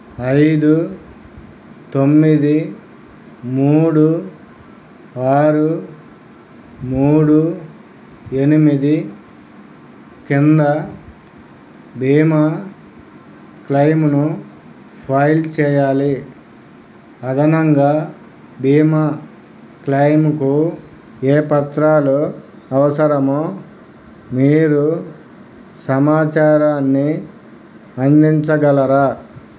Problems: none marked